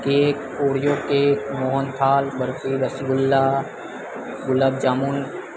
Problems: constant background noise